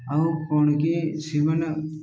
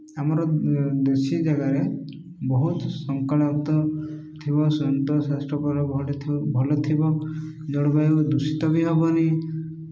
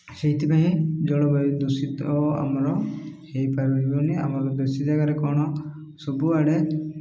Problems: none marked